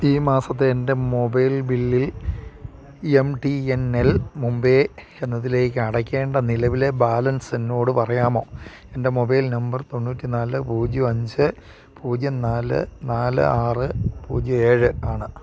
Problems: constant background noise